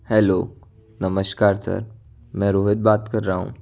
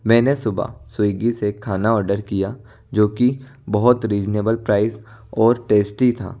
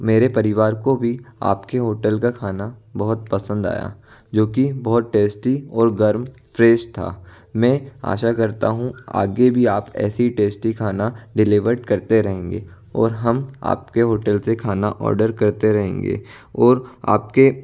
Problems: background sounds at intervals